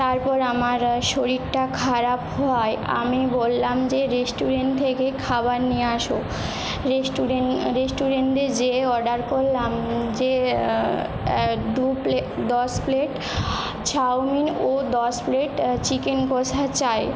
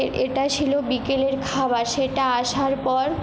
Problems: constant background noise